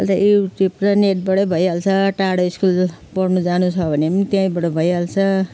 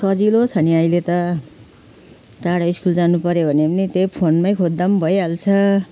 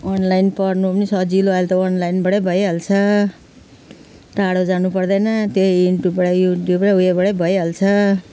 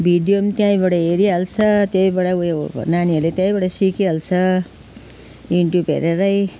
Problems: none marked